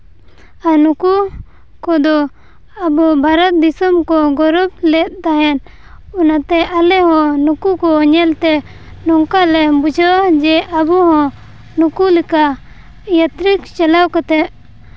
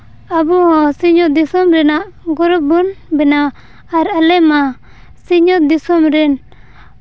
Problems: none marked